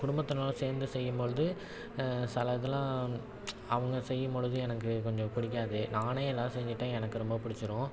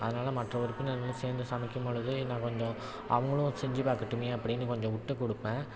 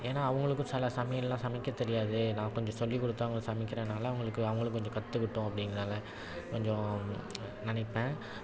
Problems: none marked